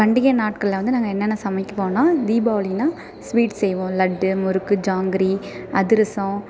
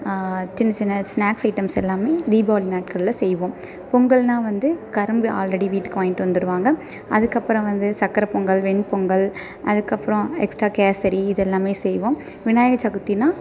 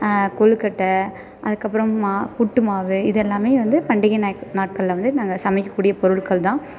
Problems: constant background noise